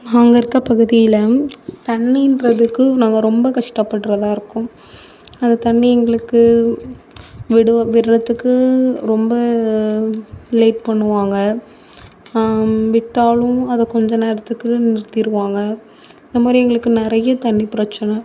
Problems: none marked